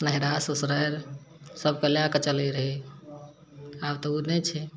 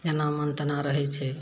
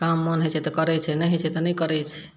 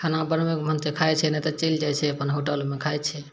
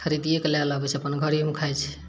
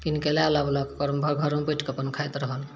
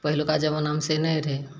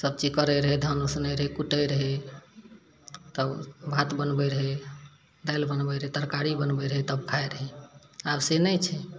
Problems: none marked